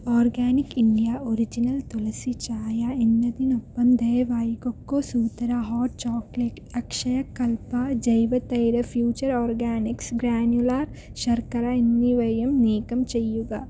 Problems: low volume